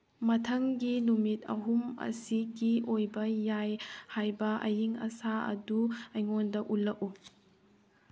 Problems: background sounds at intervals